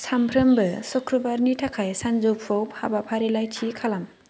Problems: none marked